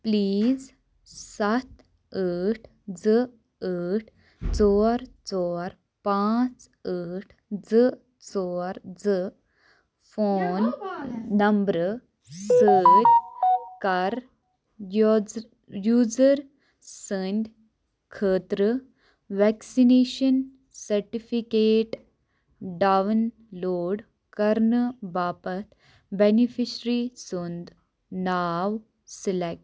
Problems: background sounds at intervals